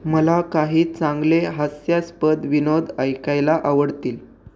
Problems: none marked